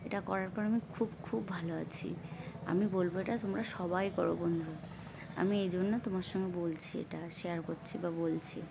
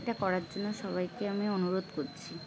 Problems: constant background noise, continuous background conversations